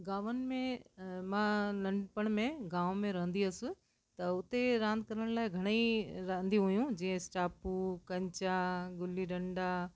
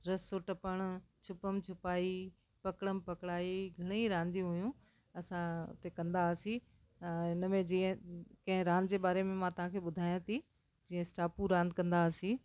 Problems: constant background noise